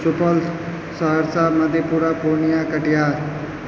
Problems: constant background noise